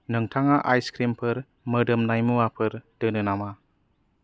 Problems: low volume